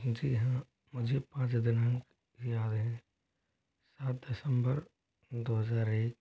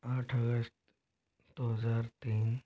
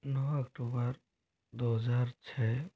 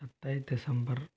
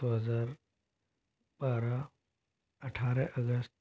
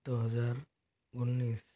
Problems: low volume